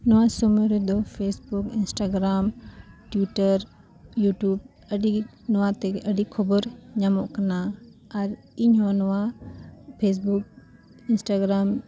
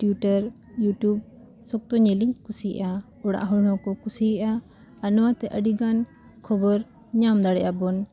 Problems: background sounds at intervals